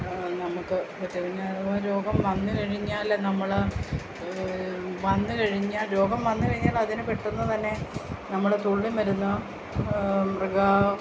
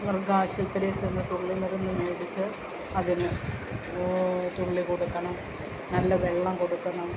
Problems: constant background noise, low volume